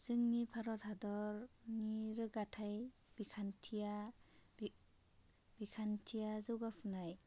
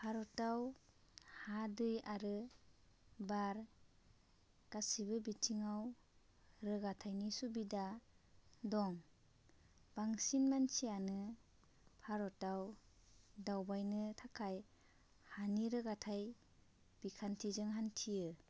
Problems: constant background noise